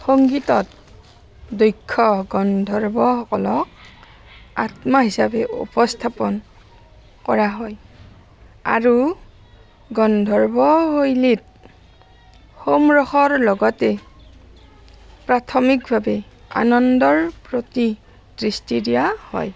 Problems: constant background noise